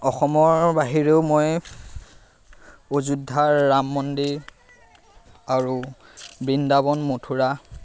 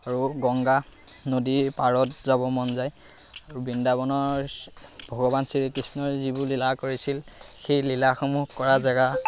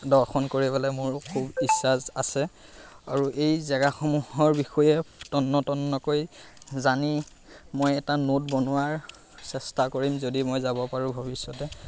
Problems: constant background noise